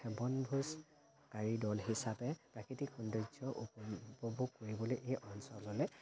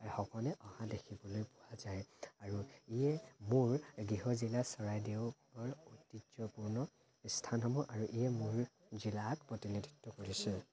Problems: constant background noise